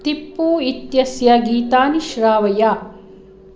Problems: none marked